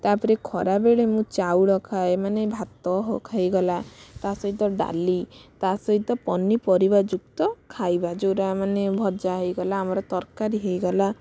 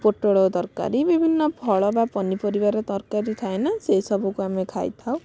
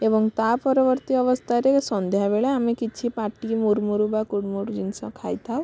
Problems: none marked